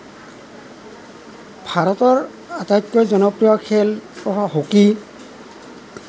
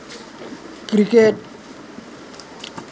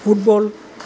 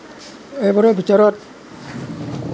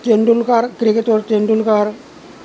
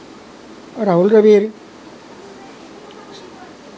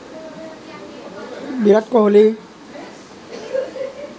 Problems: none marked